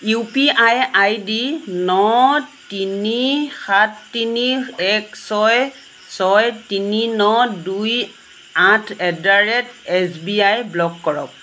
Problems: constant background noise